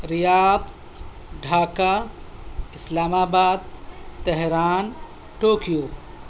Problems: constant background noise, background conversations at intervals